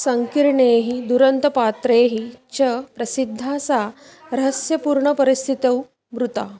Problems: constant background noise